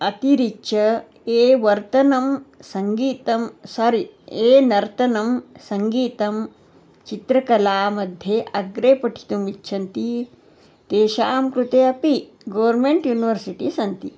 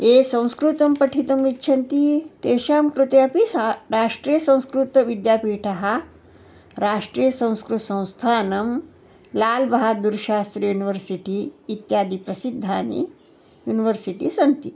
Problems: constant background noise